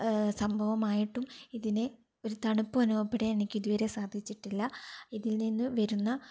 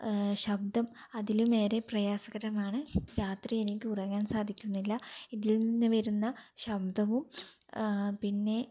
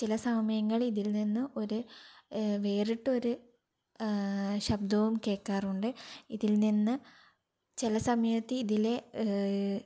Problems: none marked